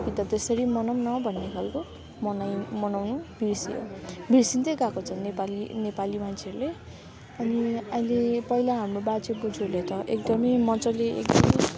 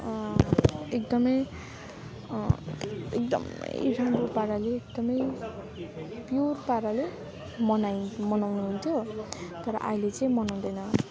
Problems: constant background noise